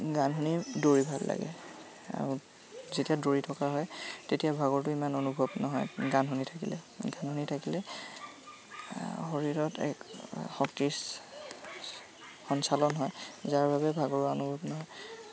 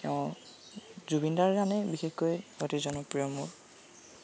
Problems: constant background noise